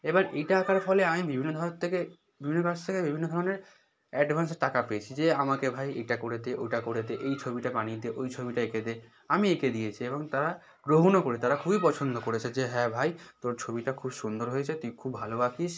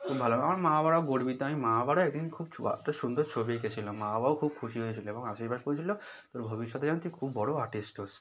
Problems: background conversations at intervals